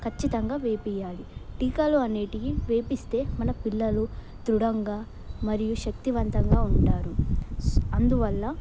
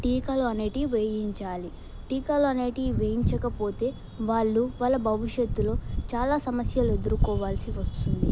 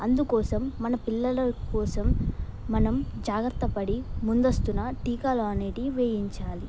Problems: background sounds at intervals